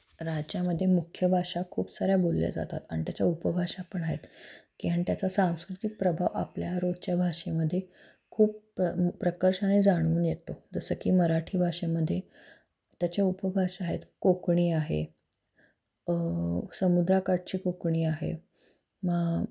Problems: none marked